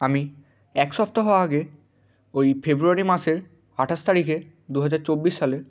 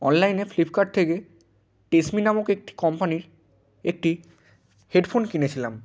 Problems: constant background noise